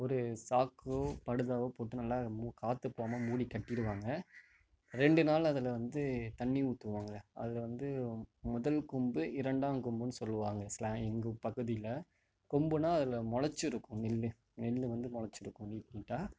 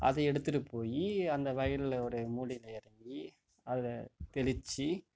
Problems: background sounds at intervals